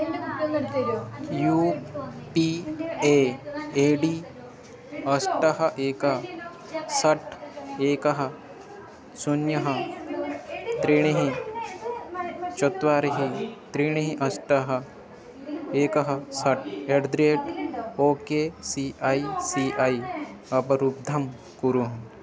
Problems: constant background noise, continuous background conversations